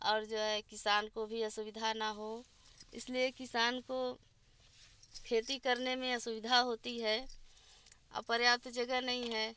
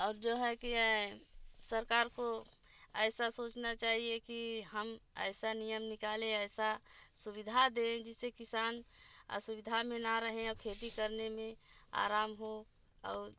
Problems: constant background noise, low volume